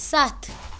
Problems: constant background noise